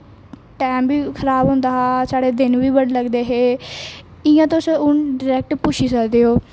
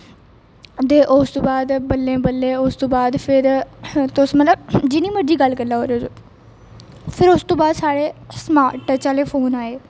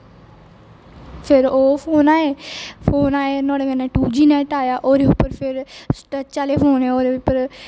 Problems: constant background noise, echo